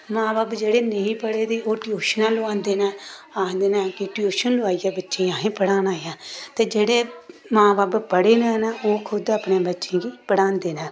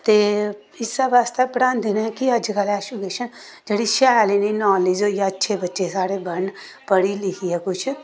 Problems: constant background noise